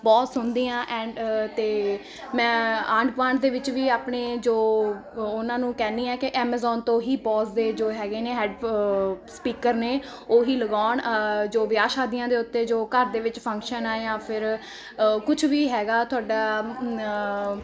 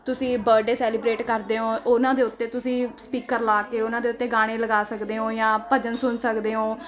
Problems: constant background noise